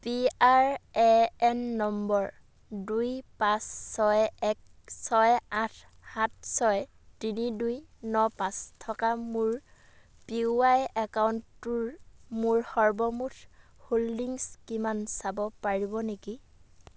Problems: none marked